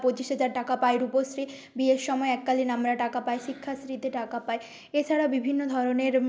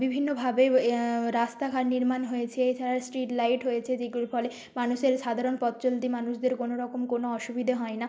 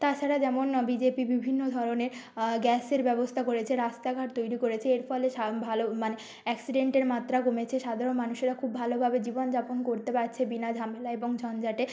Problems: background sounds at intervals